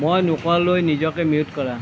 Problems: none marked